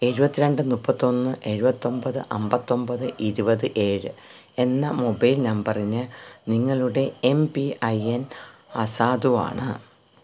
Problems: constant background noise